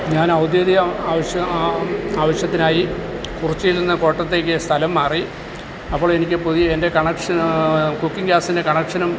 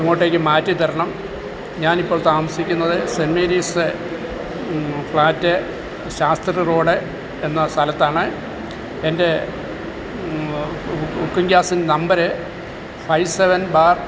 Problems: constant background noise